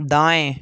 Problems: constant background noise